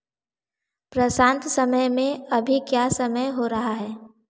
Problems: none marked